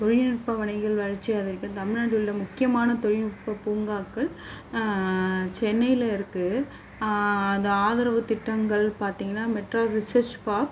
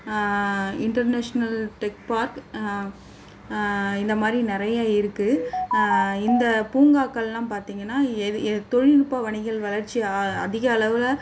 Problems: constant background noise